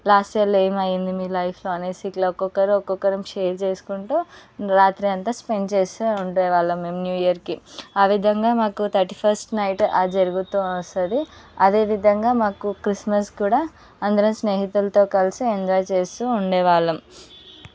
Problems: background sounds at intervals, background conversations at intervals